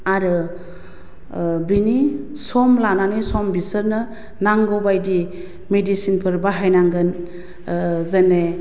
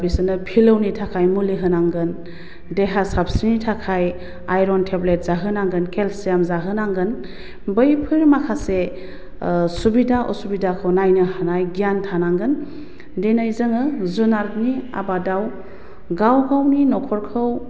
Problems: constant background noise